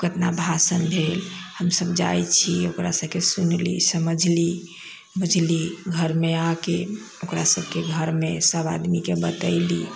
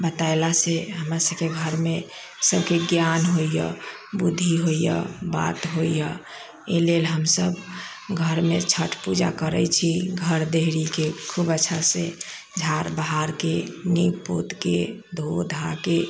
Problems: background sounds at intervals